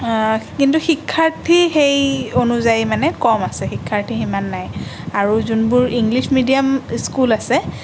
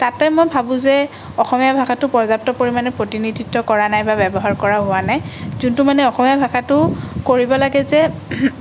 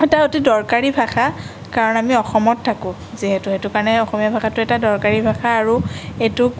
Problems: none marked